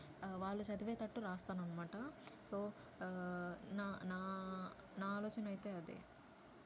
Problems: low volume